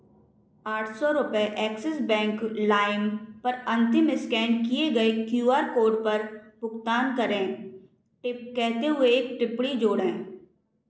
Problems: echo